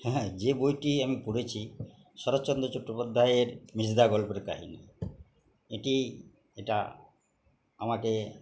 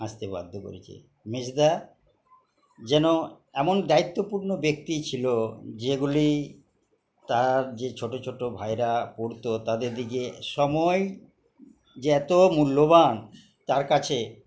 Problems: background sounds at intervals, background conversations at intervals